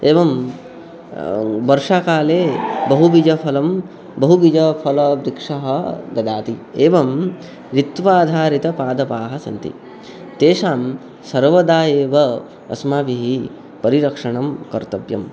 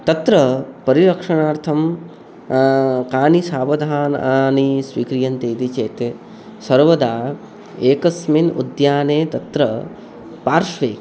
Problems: background sounds at intervals